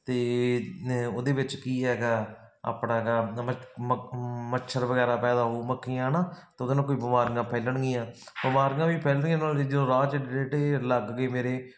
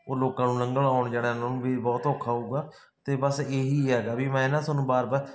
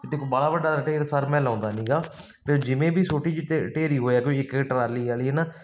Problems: constant background noise